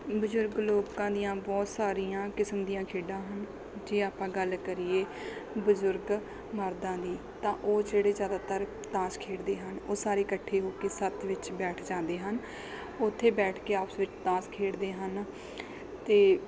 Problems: background sounds at intervals